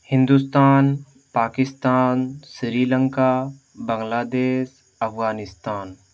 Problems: background sounds at intervals